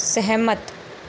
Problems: constant background noise